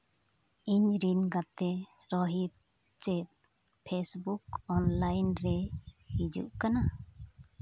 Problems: none marked